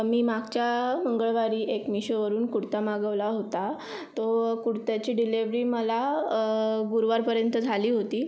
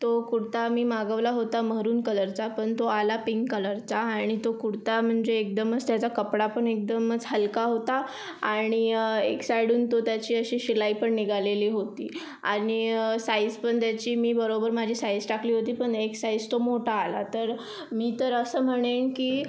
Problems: none marked